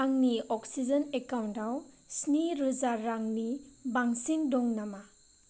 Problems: none marked